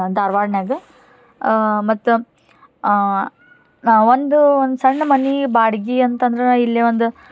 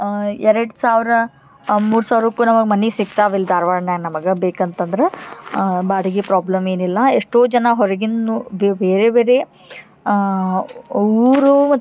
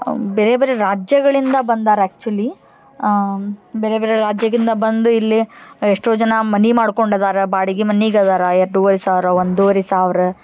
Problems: none marked